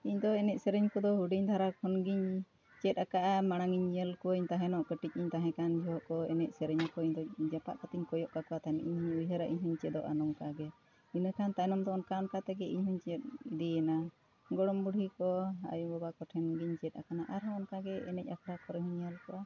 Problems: none marked